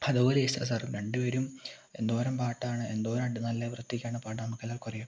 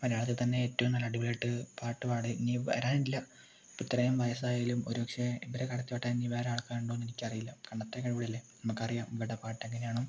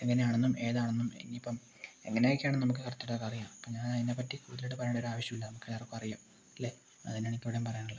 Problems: low volume